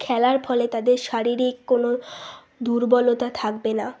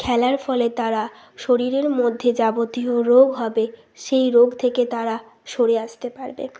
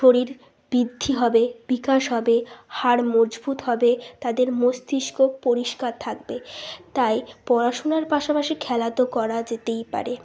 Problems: constant background noise